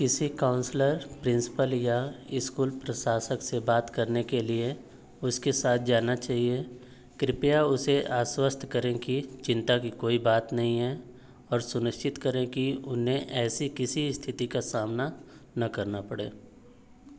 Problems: none marked